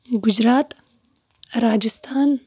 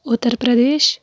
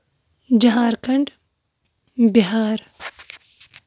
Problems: none marked